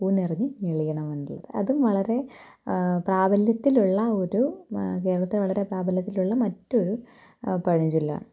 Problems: background sounds at intervals